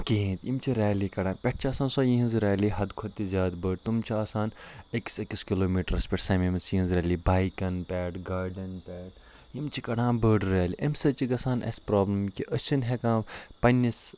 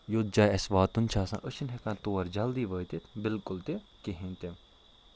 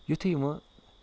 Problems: none marked